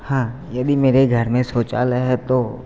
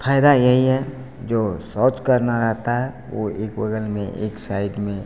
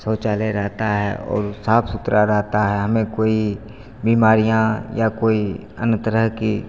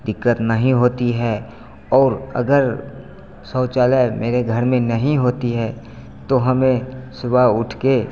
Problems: none marked